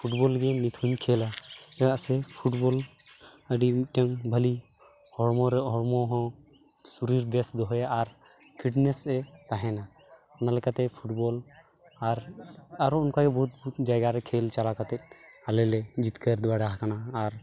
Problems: constant background noise, continuous background conversations